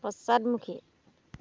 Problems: none marked